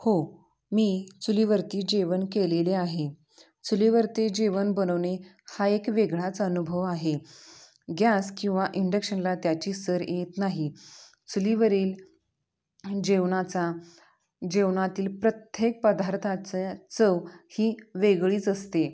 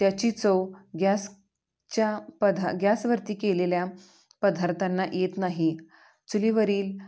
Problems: background sounds at intervals, background conversations at intervals, echo